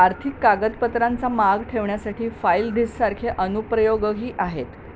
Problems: constant background noise